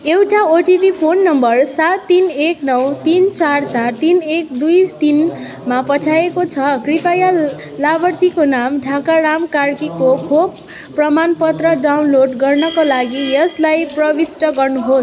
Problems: constant background noise